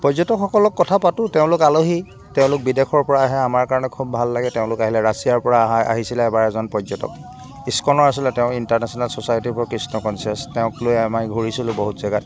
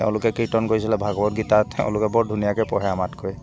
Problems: constant background noise